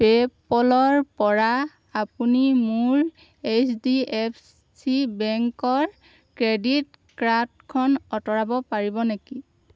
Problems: none marked